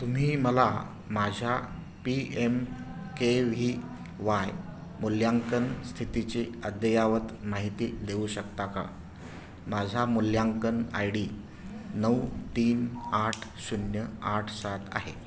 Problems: none marked